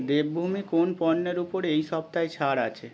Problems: background sounds at intervals, continuous background conversations